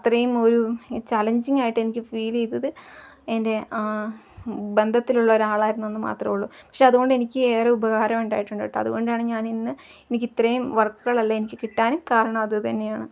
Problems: constant background noise, background conversations at intervals, low volume